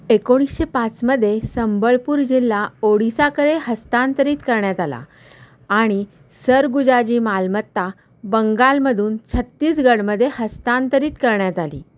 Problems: constant background noise, echo